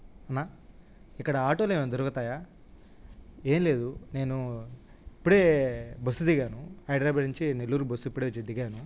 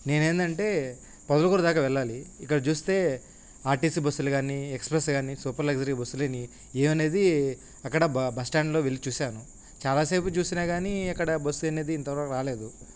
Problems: constant background noise